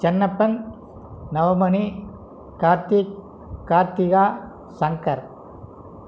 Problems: none marked